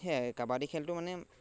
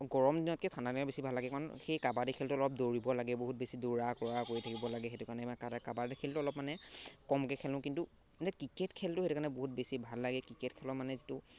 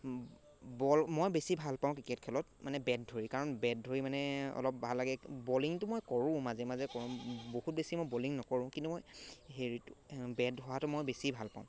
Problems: none marked